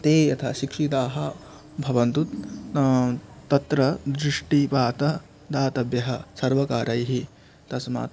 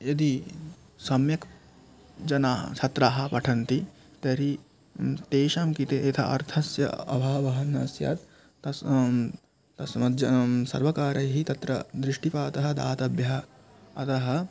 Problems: none marked